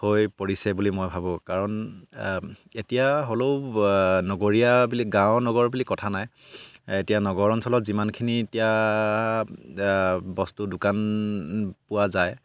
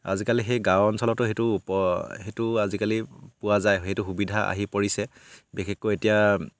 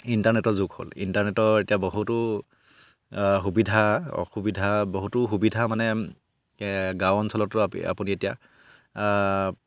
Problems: background sounds at intervals